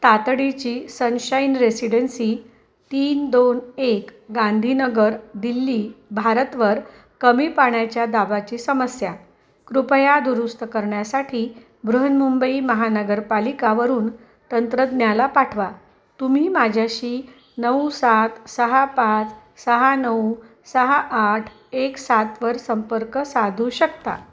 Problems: constant background noise, continuous background conversations